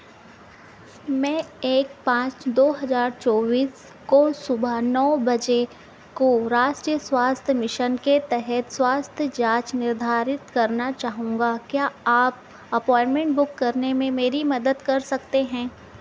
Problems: constant background noise